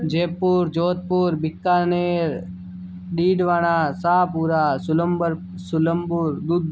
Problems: none marked